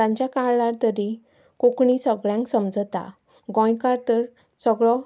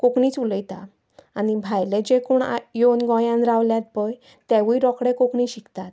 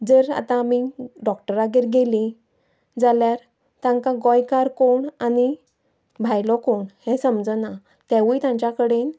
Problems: none marked